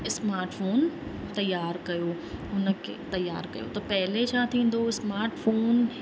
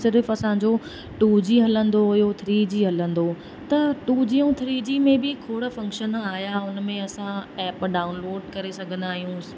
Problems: constant background noise, echo